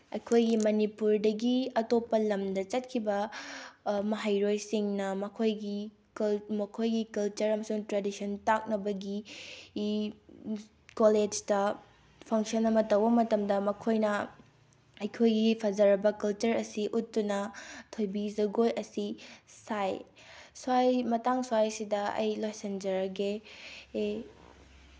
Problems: background sounds at intervals